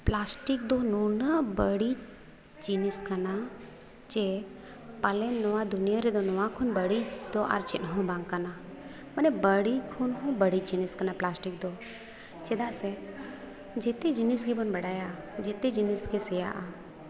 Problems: none marked